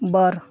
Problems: none marked